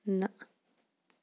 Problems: none marked